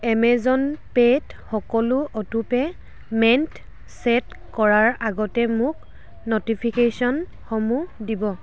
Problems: constant background noise